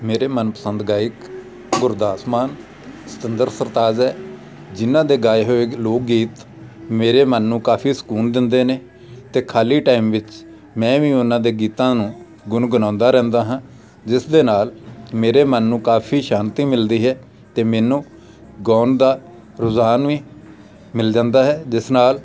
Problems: none marked